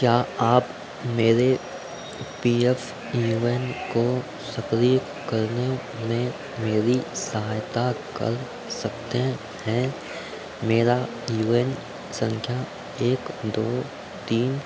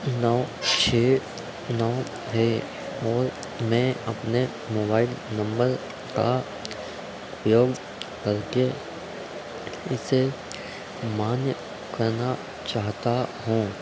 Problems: background sounds at intervals